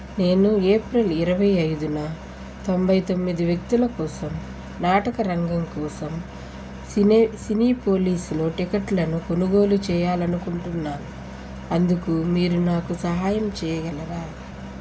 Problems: constant background noise